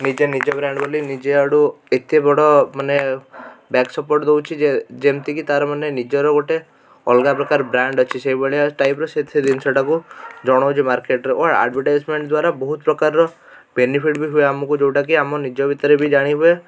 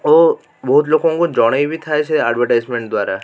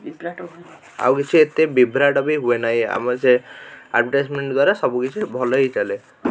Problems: background sounds at intervals